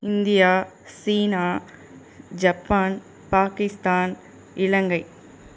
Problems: none marked